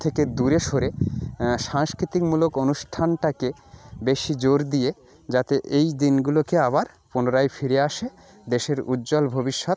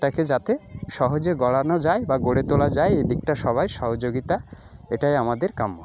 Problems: constant background noise, continuous background conversations